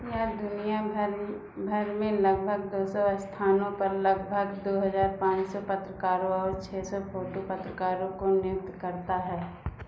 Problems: low volume